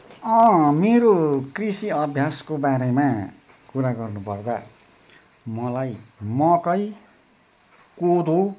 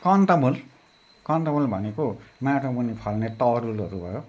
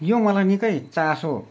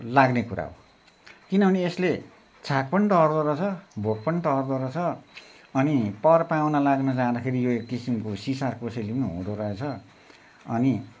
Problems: constant background noise